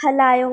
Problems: none marked